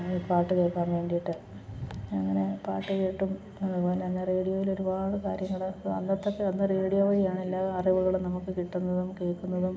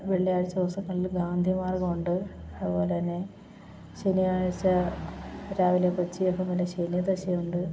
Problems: background sounds at intervals